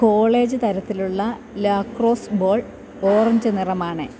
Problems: constant background noise